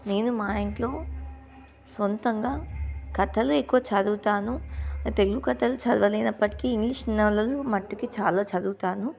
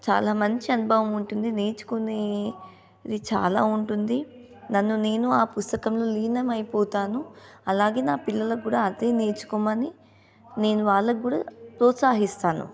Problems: background sounds at intervals